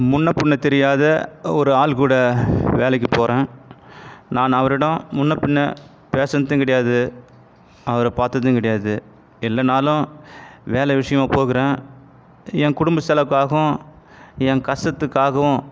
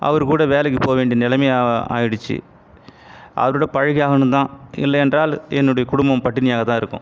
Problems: background sounds at intervals